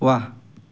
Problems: none marked